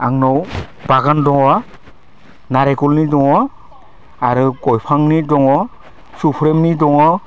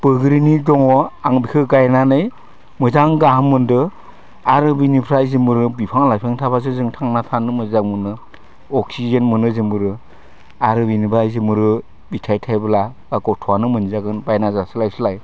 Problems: none marked